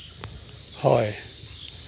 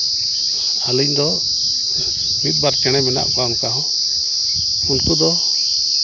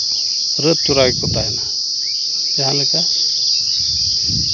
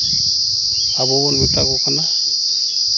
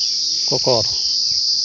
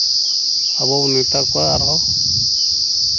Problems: none marked